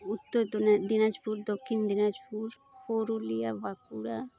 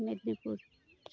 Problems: constant background noise